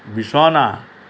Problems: constant background noise